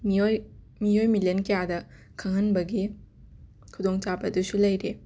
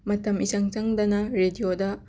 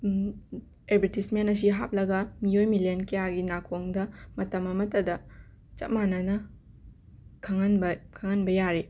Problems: background sounds at intervals, continuous background conversations